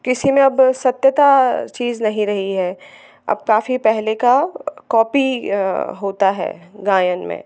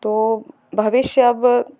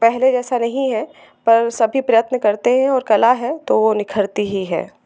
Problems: none marked